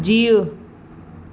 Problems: constant background noise, echo